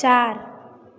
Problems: constant background noise